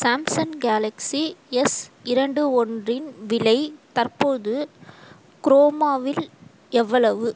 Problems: constant background noise